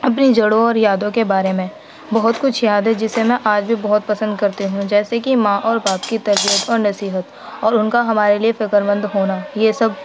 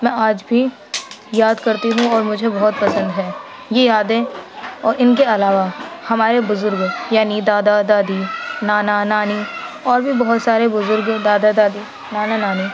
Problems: constant background noise, background conversations at intervals